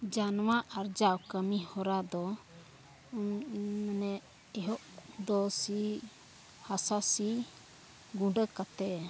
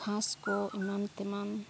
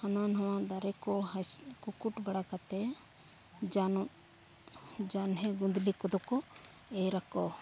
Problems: background sounds at intervals, background conversations at intervals